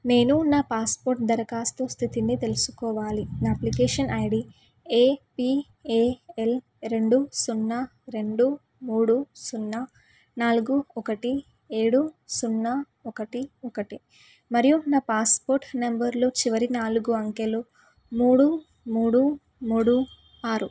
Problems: background sounds at intervals